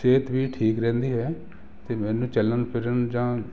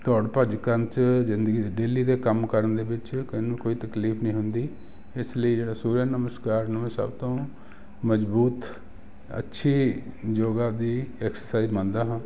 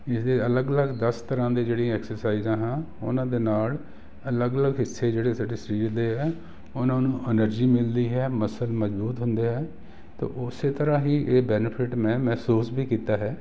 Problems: none marked